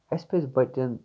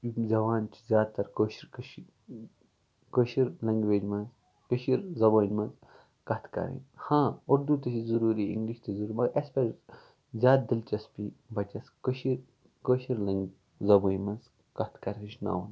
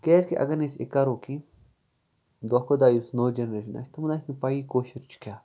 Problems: background sounds at intervals